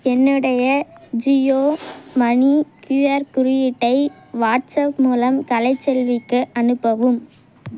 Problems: none marked